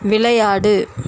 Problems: constant background noise